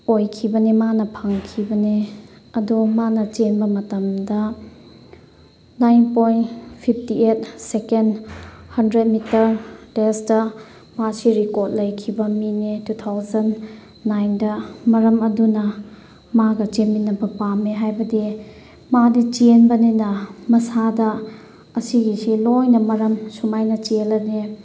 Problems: constant background noise